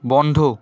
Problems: constant background noise